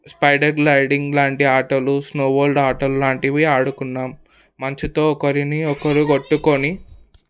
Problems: background conversations at intervals